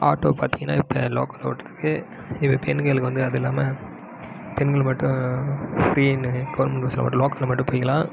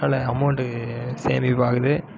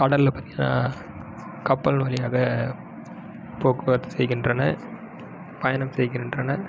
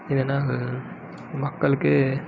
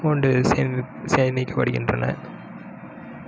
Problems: background sounds at intervals